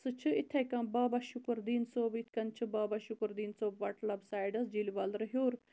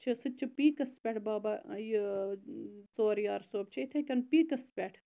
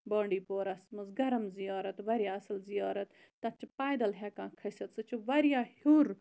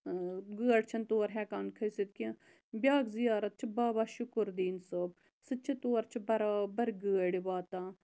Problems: constant background noise